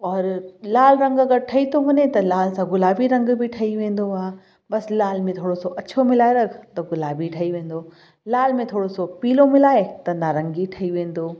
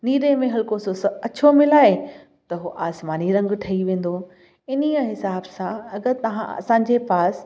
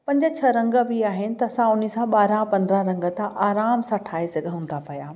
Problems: background sounds at intervals, echo